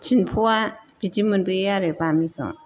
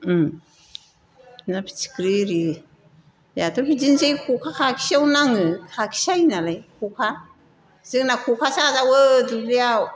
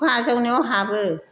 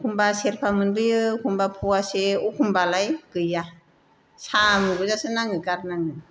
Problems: none marked